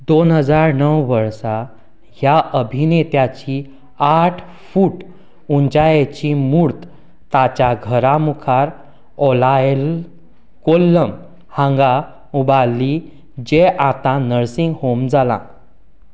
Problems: background conversations at intervals